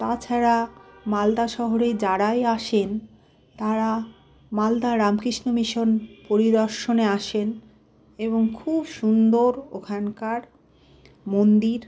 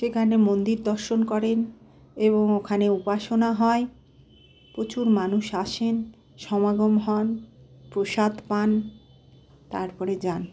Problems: constant background noise